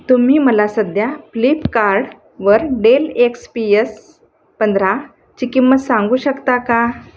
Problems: constant background noise